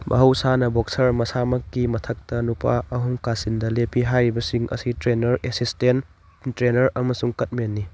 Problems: background sounds at intervals, background conversations at intervals